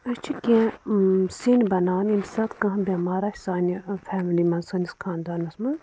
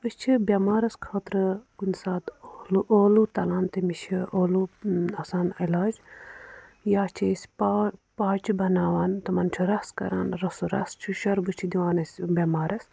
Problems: none marked